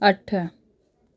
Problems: constant background noise